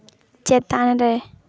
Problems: constant background noise